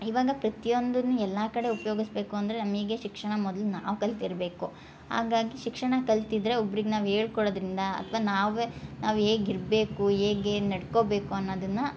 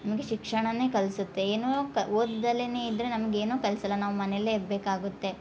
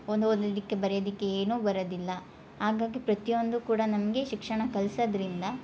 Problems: none marked